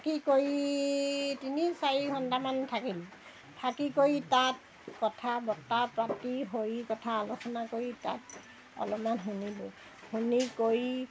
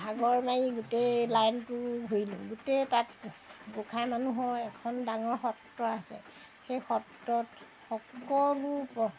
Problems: background sounds at intervals